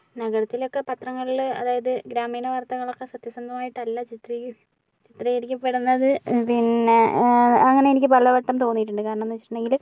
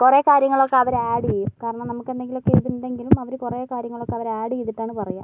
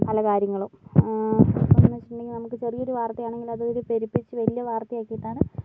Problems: background sounds at intervals, low volume